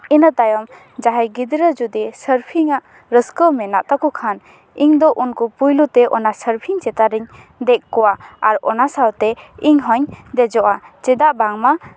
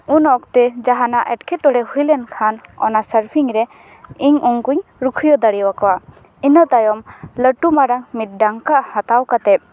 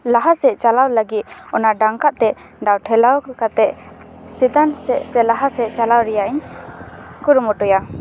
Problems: constant background noise